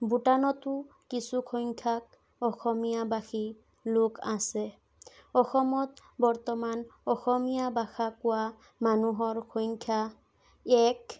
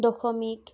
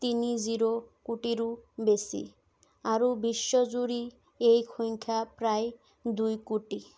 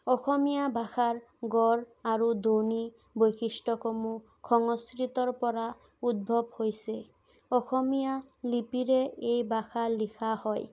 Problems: none marked